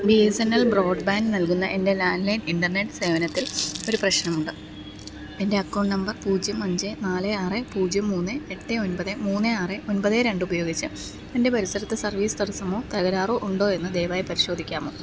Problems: none marked